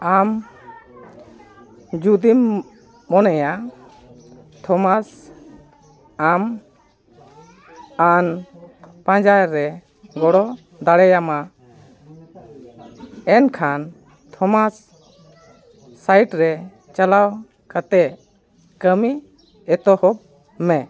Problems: continuous background conversations